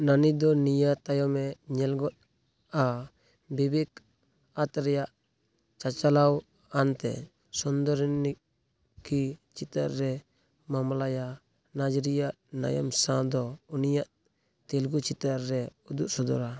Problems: background sounds at intervals